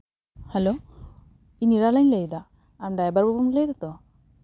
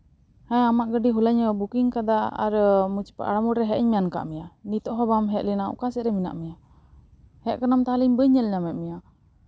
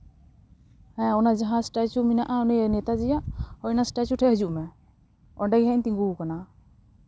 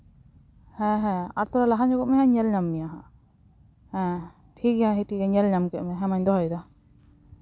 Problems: none marked